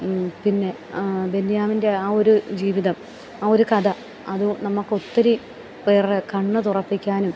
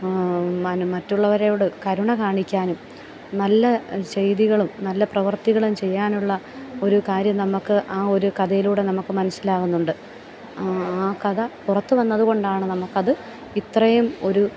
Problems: background sounds at intervals, low volume